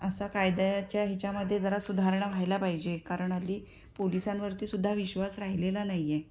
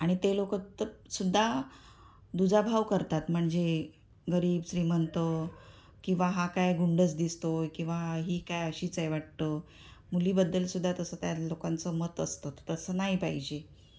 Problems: constant background noise